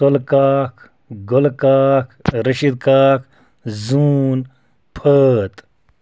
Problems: background sounds at intervals